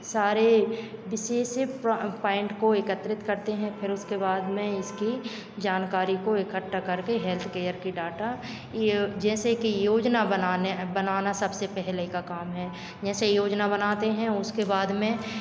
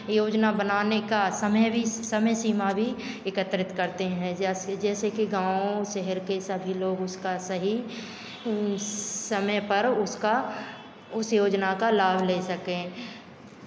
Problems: constant background noise, background conversations at intervals, echo